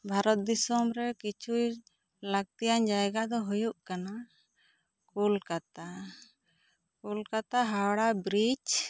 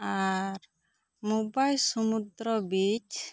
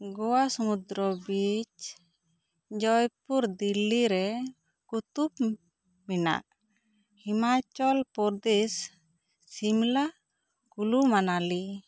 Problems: none marked